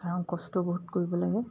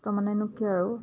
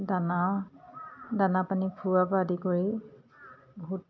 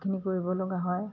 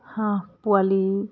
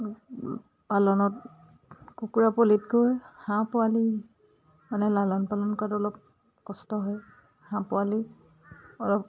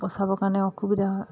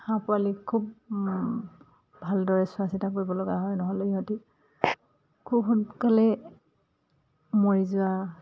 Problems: none marked